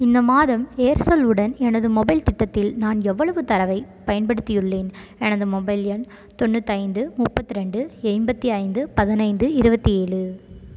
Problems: constant background noise